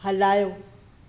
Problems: constant background noise